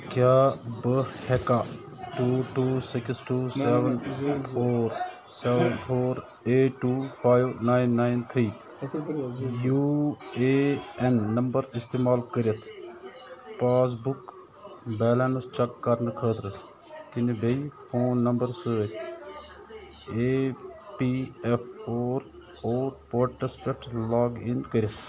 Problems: constant background noise